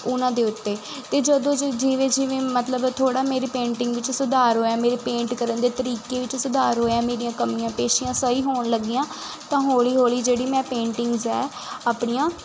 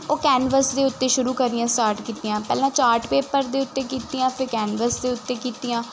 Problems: constant background noise